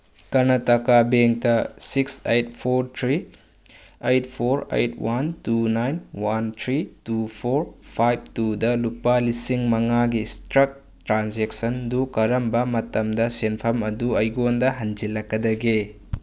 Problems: none marked